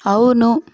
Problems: none marked